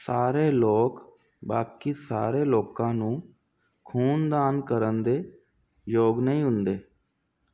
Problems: constant background noise